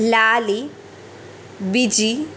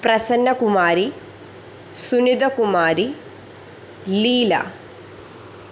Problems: constant background noise